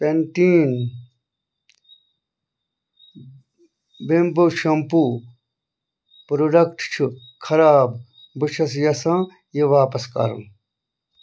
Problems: none marked